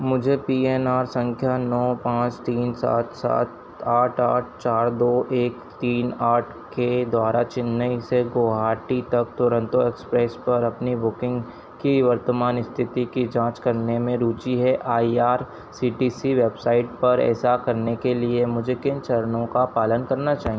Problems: none marked